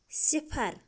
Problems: constant background noise